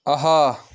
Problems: background sounds at intervals